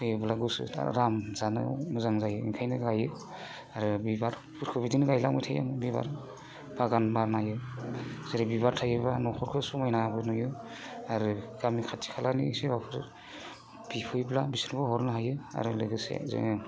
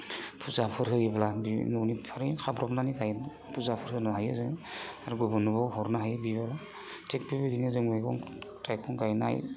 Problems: constant background noise